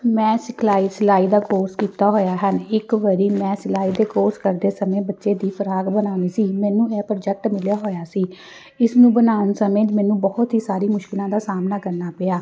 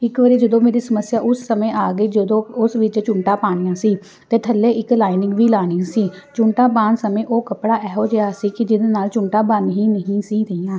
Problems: background sounds at intervals